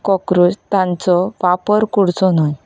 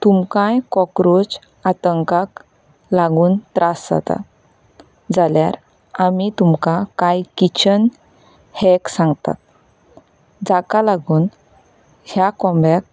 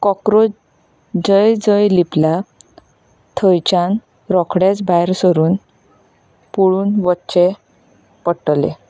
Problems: background sounds at intervals